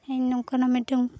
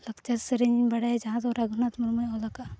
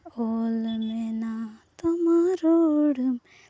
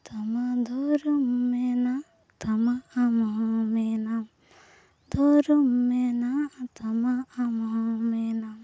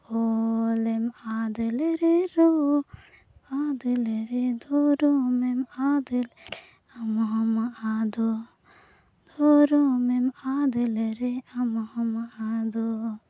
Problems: none marked